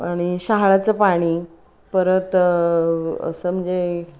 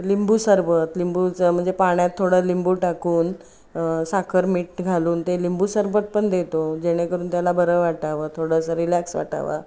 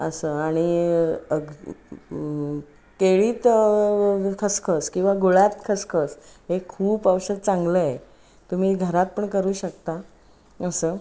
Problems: none marked